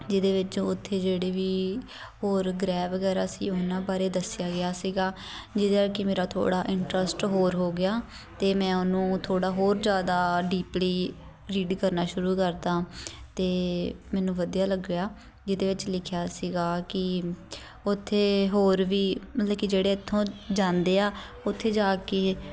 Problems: background conversations at intervals